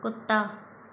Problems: constant background noise